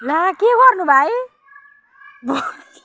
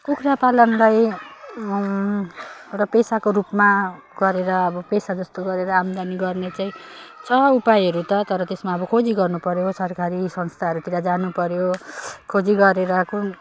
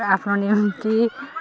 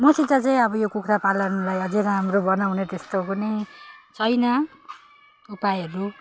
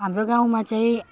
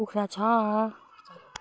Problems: none marked